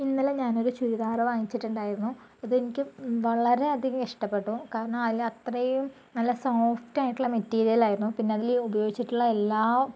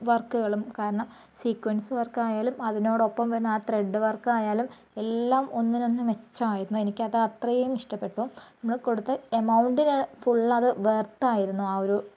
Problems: low volume